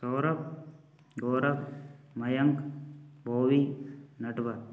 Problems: none marked